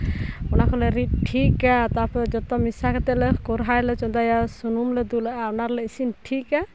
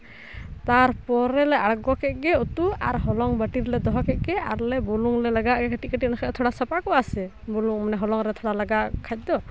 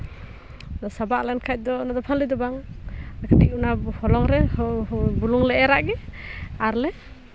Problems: none marked